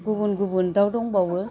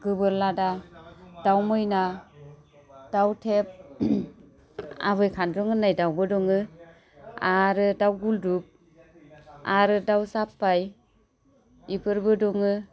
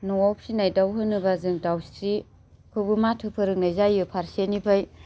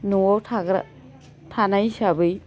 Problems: low volume